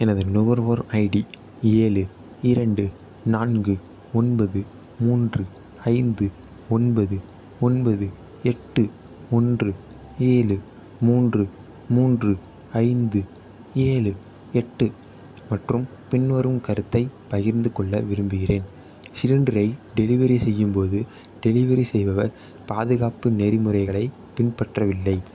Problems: none marked